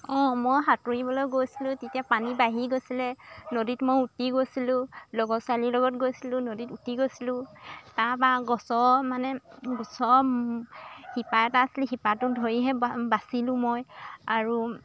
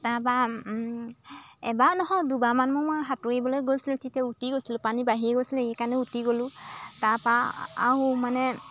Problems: constant background noise